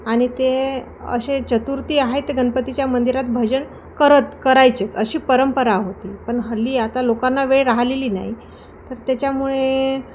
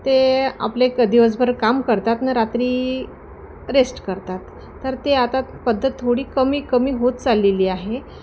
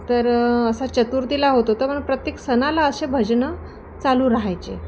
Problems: constant background noise